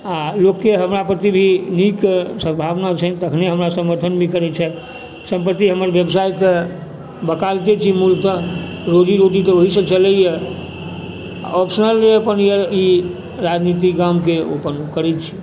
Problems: background sounds at intervals